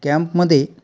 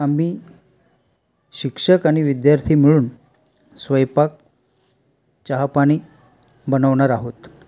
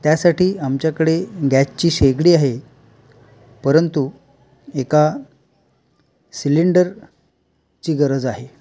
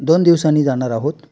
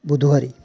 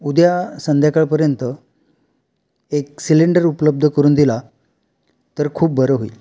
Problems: constant background noise